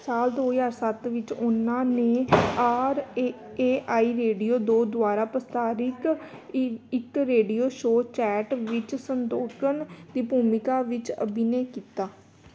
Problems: background sounds at intervals